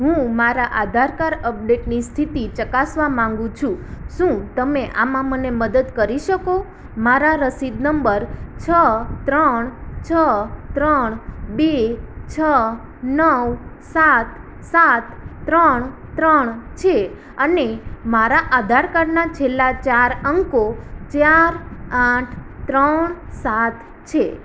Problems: none marked